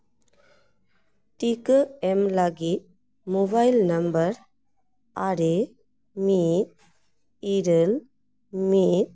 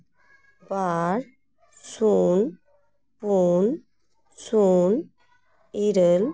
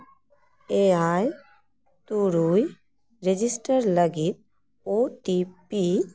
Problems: background conversations at intervals